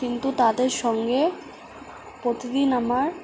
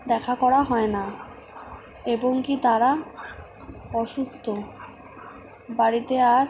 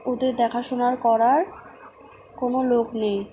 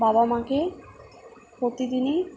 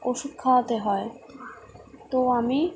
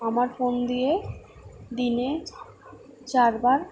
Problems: constant background noise